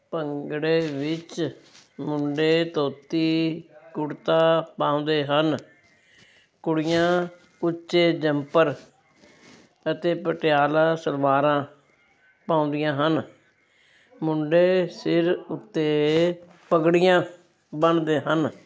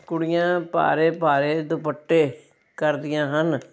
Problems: none marked